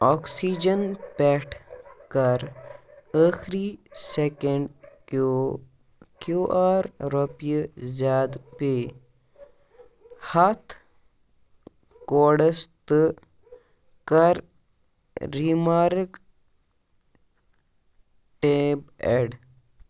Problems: background sounds at intervals